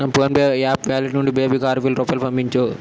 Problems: constant background noise